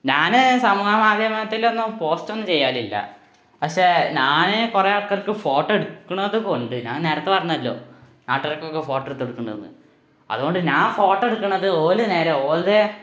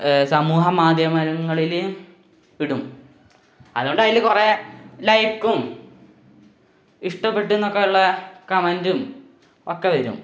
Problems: background sounds at intervals